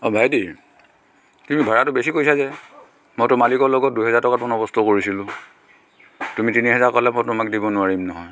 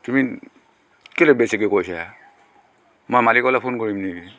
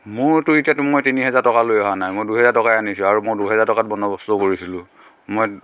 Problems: constant background noise, background conversations at intervals, echo